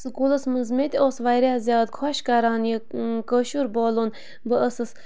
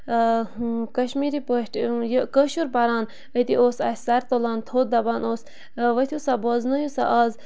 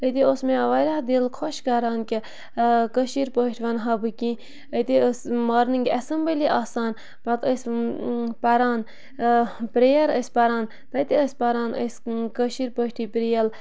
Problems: constant background noise